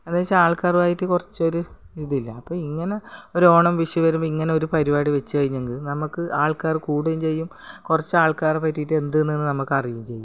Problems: background sounds at intervals, background conversations at intervals